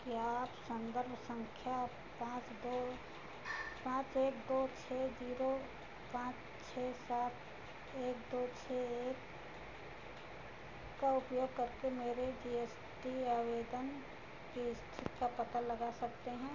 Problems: none marked